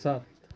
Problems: none marked